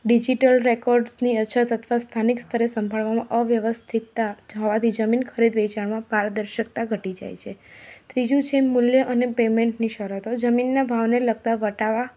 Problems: constant background noise